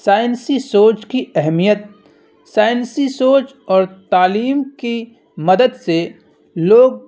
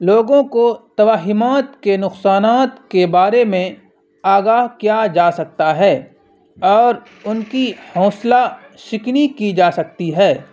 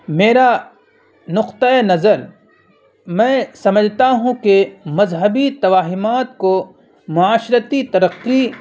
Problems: constant background noise